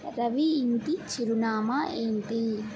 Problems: none marked